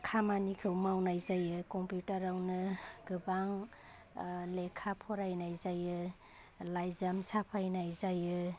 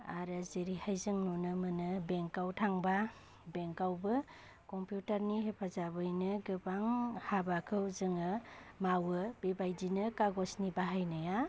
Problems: constant background noise